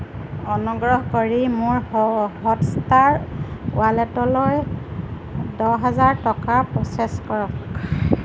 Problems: constant background noise